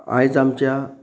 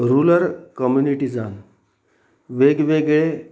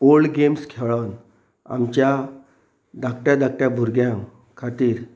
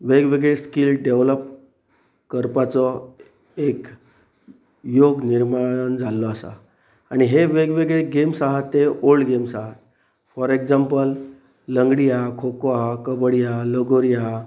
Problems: none marked